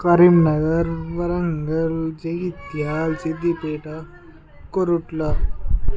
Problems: background conversations at intervals